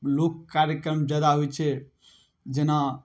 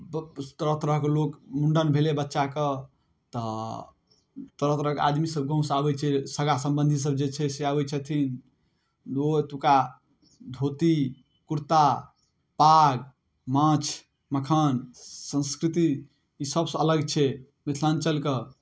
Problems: none marked